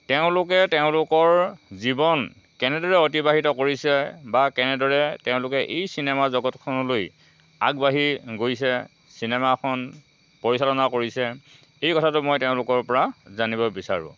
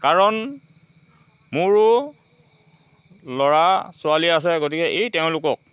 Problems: none marked